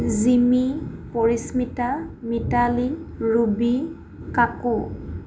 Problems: background sounds at intervals